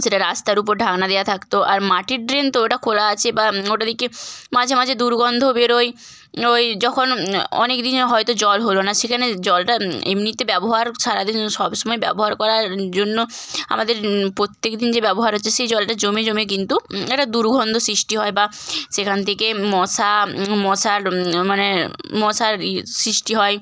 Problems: none marked